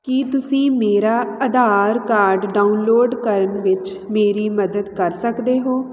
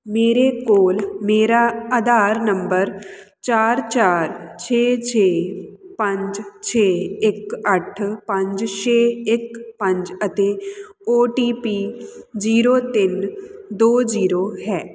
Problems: constant background noise